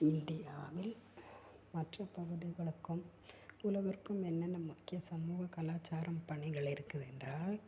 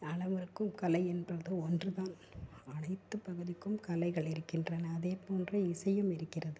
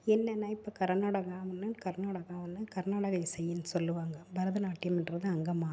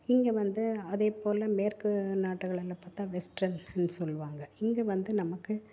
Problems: constant background noise, low volume